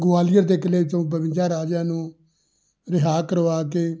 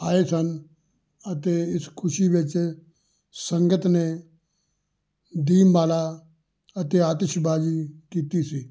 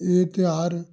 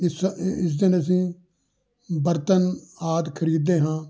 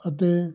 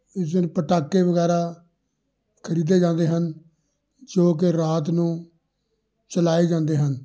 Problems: background conversations at intervals